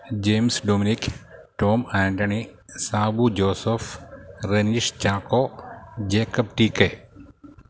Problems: background sounds at intervals